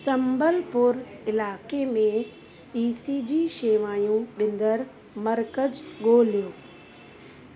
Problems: constant background noise